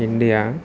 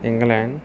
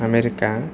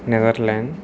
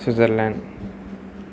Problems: constant background noise